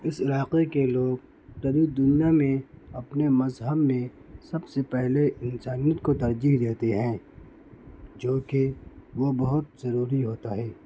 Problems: constant background noise